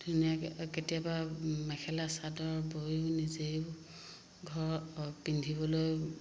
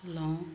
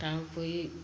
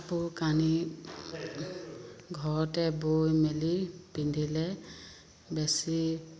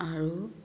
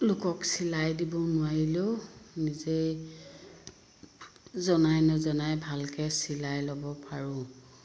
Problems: constant background noise